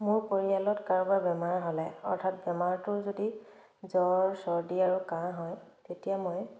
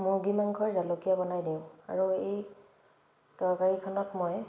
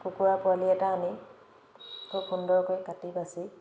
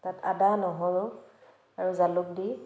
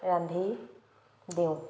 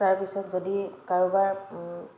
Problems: background sounds at intervals